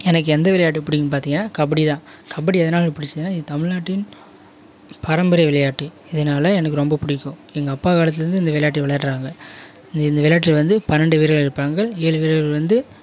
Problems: background sounds at intervals